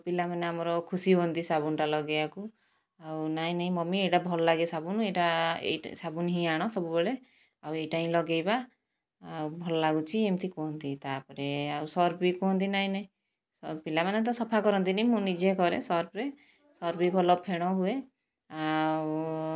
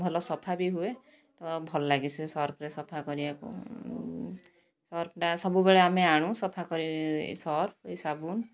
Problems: none marked